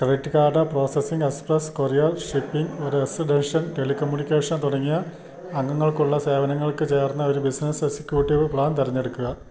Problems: constant background noise, low volume